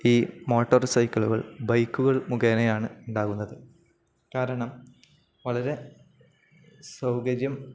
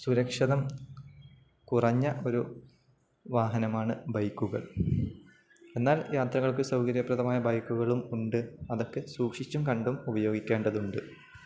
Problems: none marked